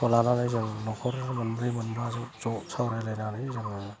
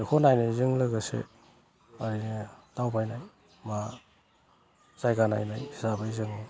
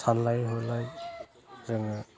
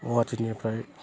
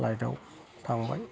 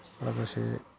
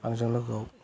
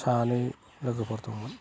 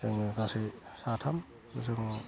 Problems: low volume